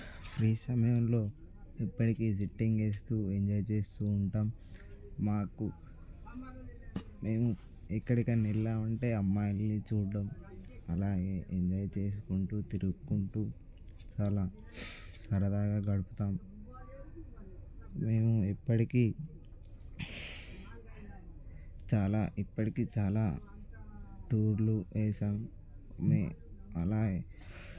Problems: background conversations at intervals